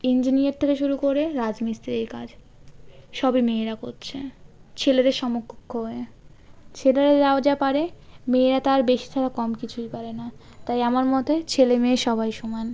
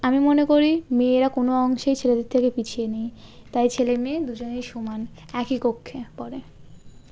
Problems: none marked